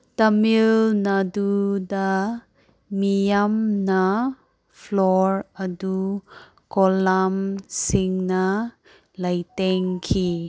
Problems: none marked